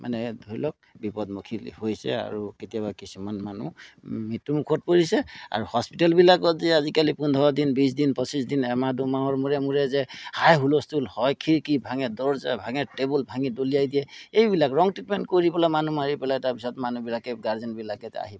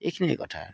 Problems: none marked